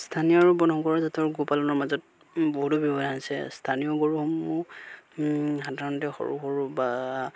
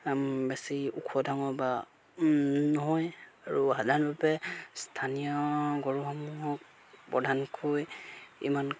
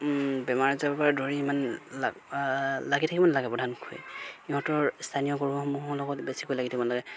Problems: none marked